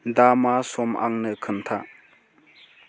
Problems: constant background noise